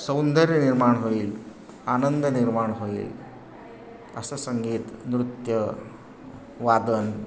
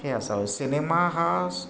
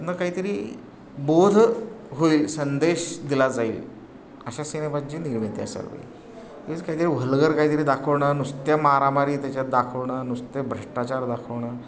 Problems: constant background noise